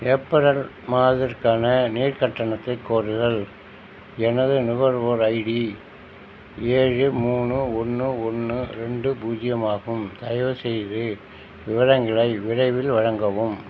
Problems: constant background noise